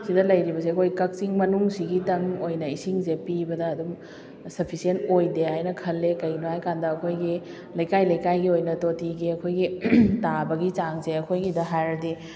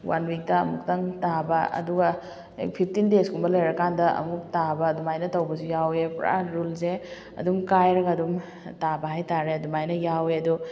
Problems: background sounds at intervals